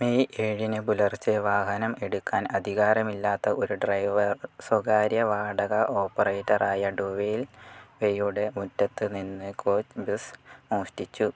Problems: low volume